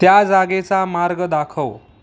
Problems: background sounds at intervals